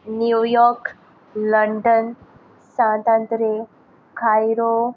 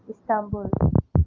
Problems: background sounds at intervals